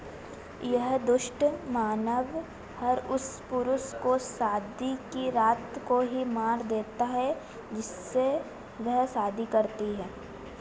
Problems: constant background noise